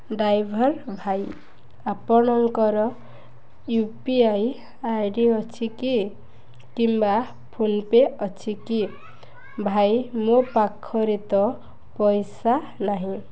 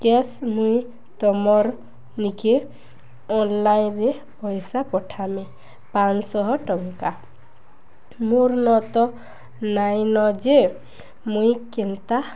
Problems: none marked